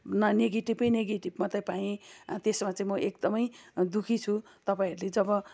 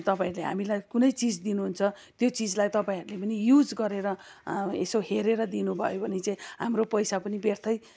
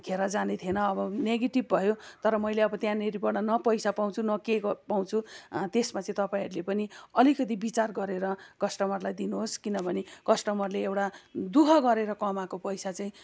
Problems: background sounds at intervals, continuous background conversations